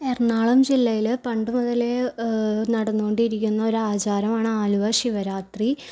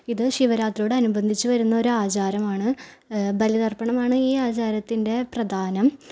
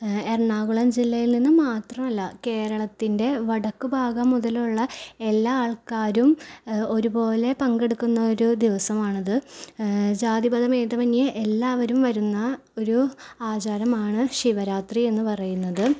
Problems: none marked